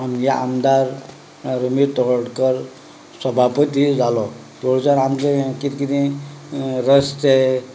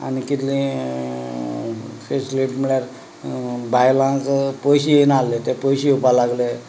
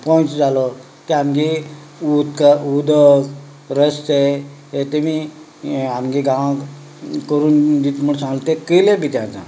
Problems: background conversations at intervals